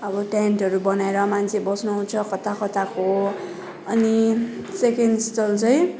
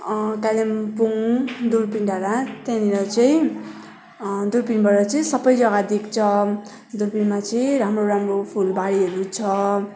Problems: none marked